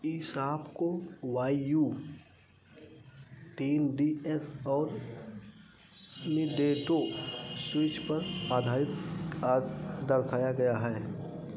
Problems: constant background noise, low volume